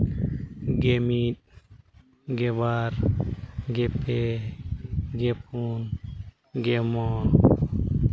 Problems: constant background noise